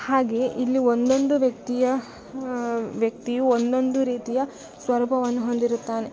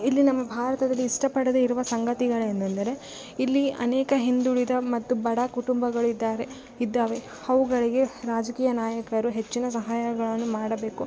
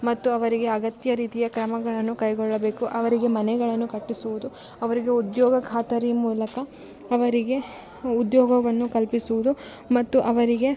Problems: background sounds at intervals